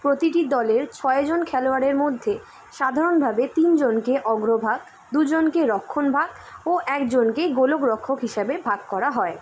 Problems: constant background noise